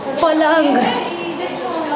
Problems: constant background noise